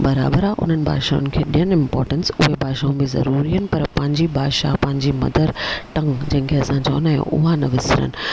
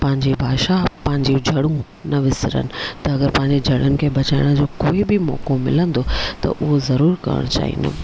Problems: none marked